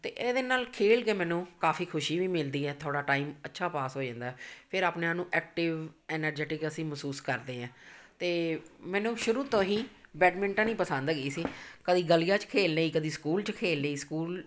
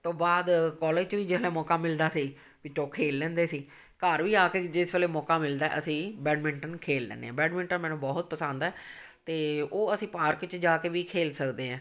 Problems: none marked